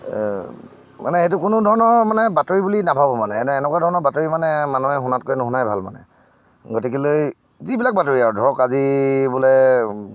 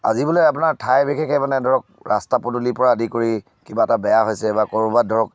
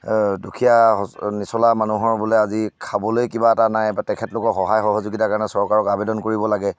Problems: none marked